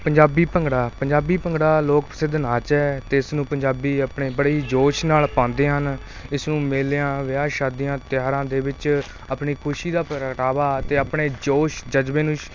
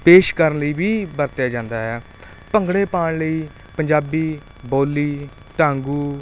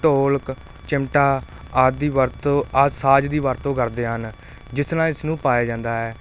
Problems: constant background noise